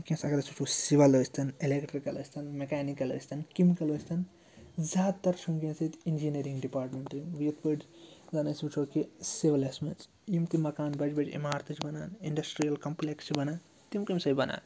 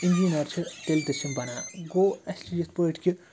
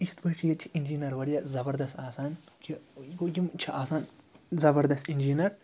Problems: background conversations at intervals